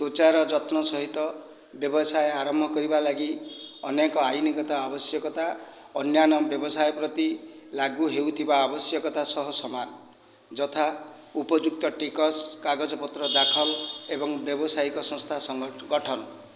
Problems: background sounds at intervals